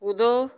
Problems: none marked